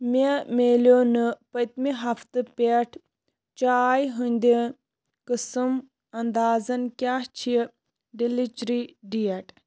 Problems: constant background noise